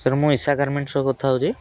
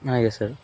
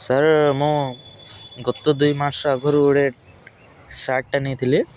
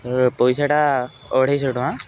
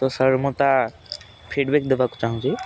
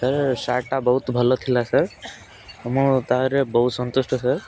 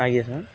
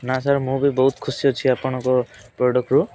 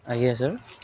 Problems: constant background noise